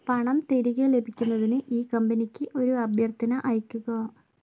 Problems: low volume